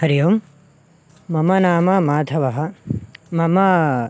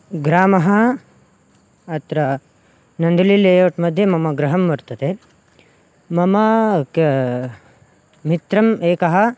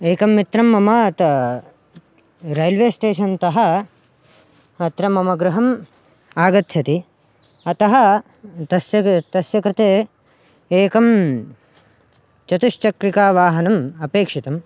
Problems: none marked